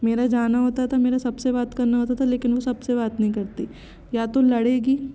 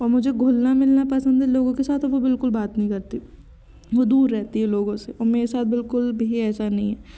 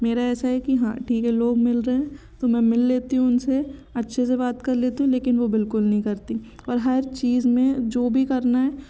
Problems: constant background noise, background conversations at intervals